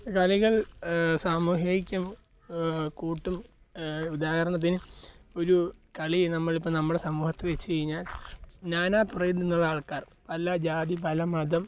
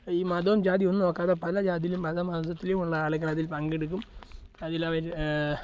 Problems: background sounds at intervals